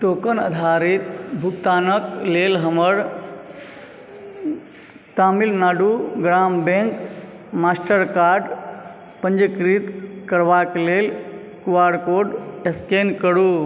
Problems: background sounds at intervals